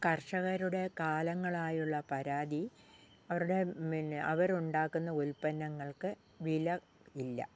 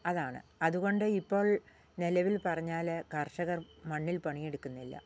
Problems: low volume